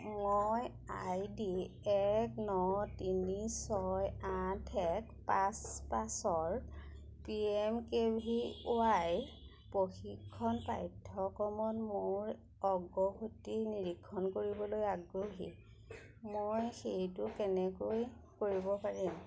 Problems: none marked